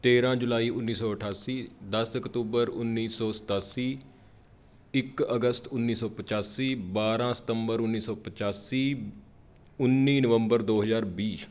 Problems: background sounds at intervals